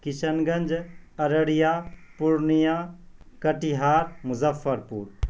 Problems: constant background noise